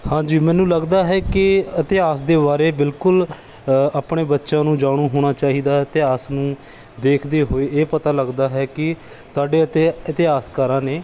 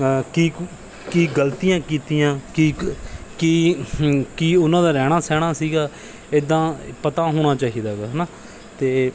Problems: none marked